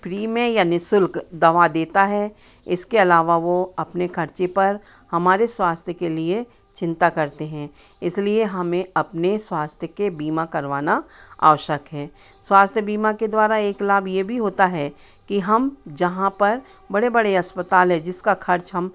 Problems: constant background noise